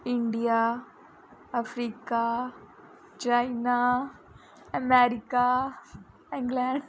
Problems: background conversations at intervals